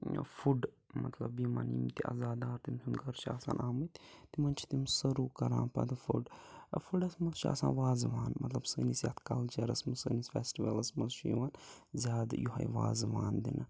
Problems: none marked